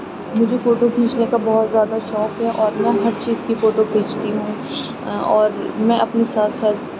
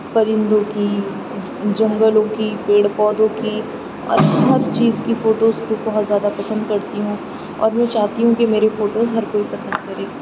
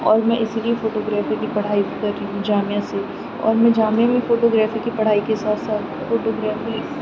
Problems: none marked